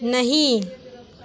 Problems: none marked